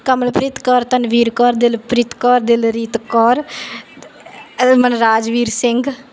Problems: none marked